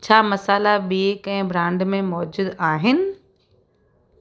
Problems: constant background noise